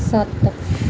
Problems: constant background noise